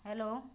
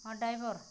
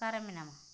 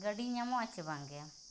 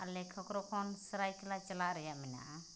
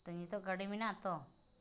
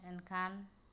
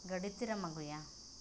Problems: constant background noise